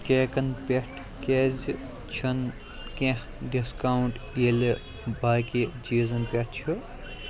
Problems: constant background noise, continuous background conversations